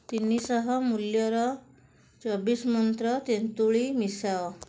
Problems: none marked